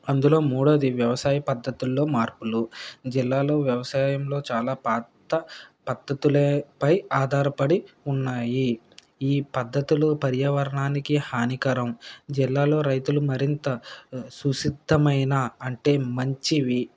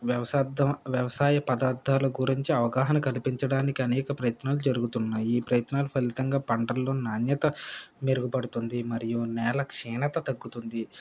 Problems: background sounds at intervals